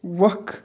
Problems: none marked